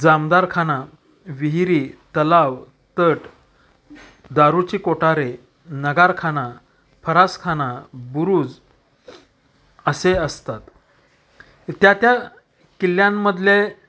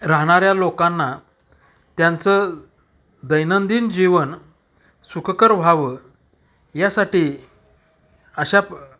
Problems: none marked